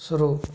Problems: none marked